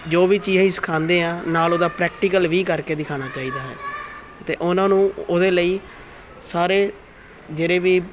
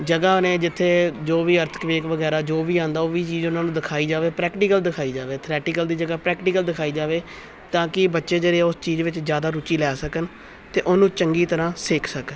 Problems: continuous background conversations